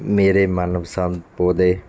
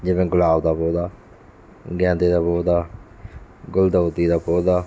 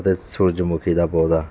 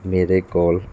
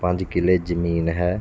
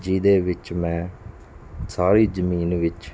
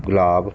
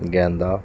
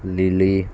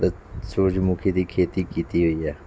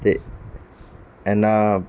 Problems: constant background noise